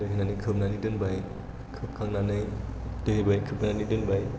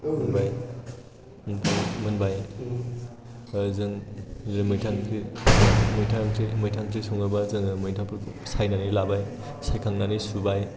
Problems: background sounds at intervals